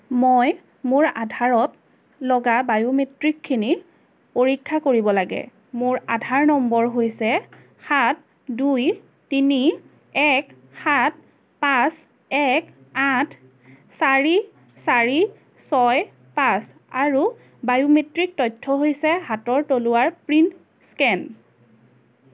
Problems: constant background noise, background conversations at intervals